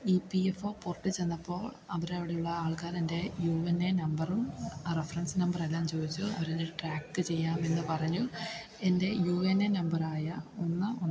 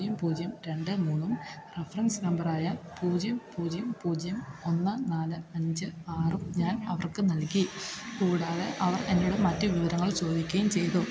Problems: constant background noise